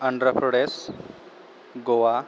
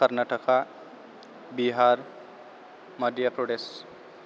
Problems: constant background noise